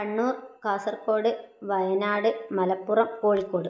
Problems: none marked